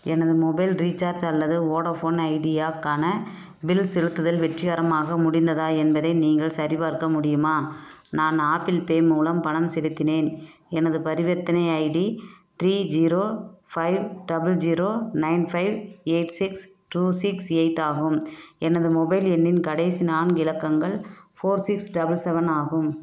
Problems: background sounds at intervals